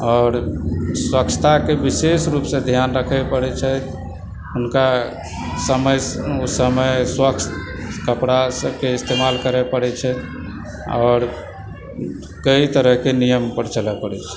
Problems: constant background noise, background conversations at intervals